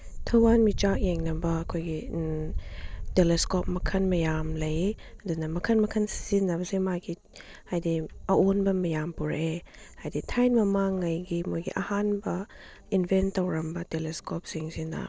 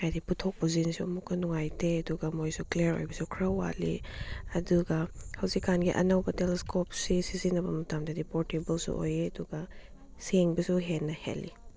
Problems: none marked